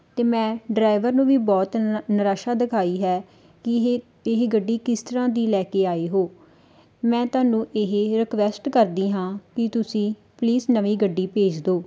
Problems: background sounds at intervals